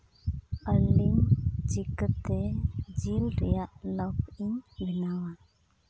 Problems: background sounds at intervals, low volume